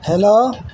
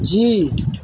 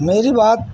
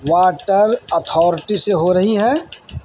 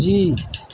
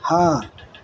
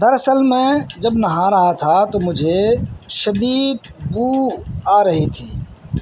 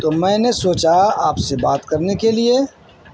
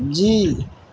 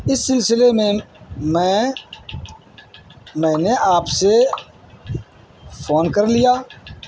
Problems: constant background noise